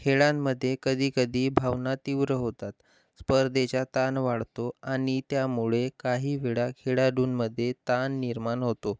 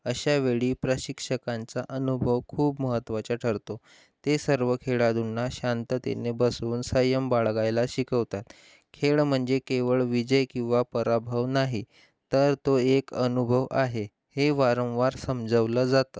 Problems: constant background noise